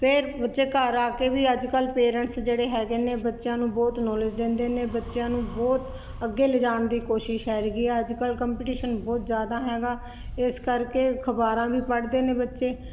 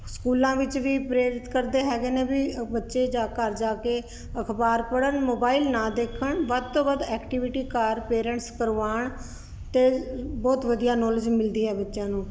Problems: constant background noise